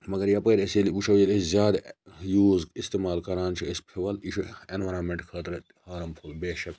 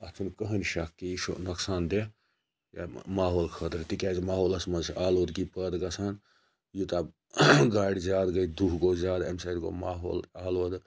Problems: none marked